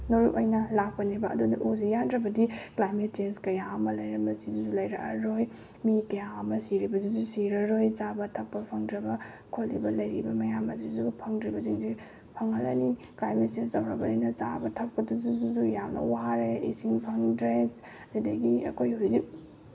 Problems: background sounds at intervals